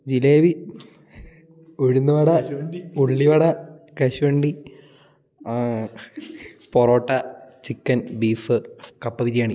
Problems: none marked